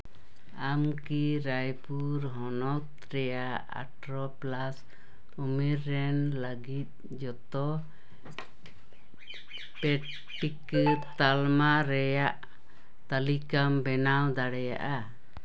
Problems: background sounds at intervals, background conversations at intervals